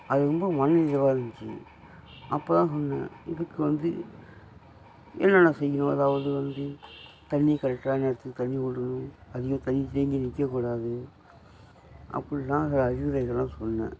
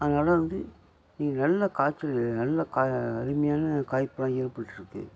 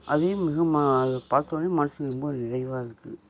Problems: constant background noise